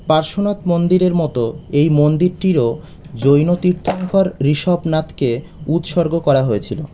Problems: constant background noise